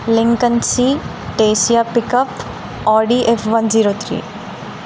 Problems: constant background noise